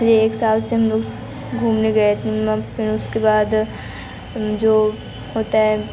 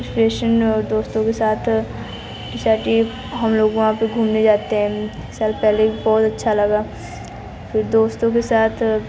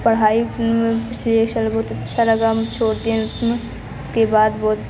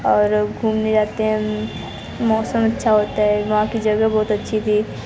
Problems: constant background noise